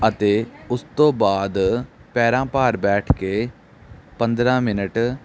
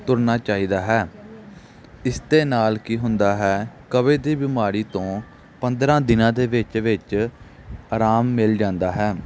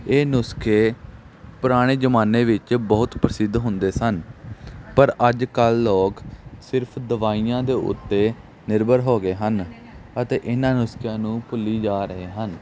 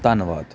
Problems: background sounds at intervals